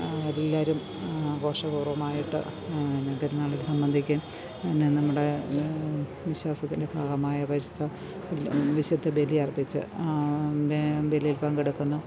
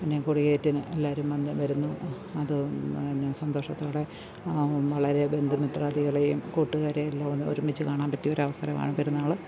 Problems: none marked